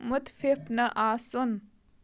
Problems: background sounds at intervals